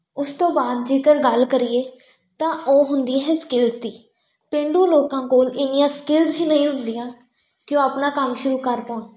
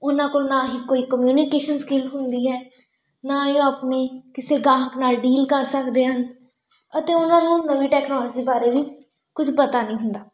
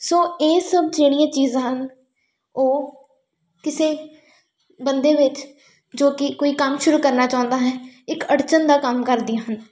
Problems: background sounds at intervals